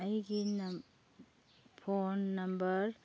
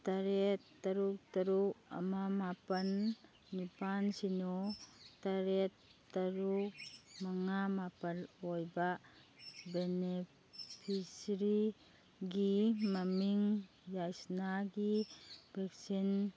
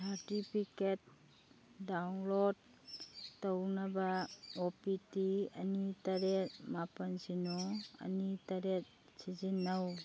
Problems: background sounds at intervals